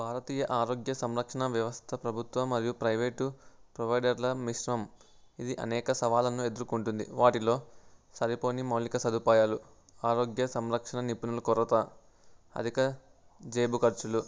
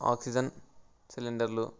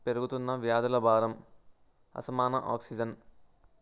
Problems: background sounds at intervals